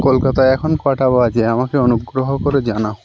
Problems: constant background noise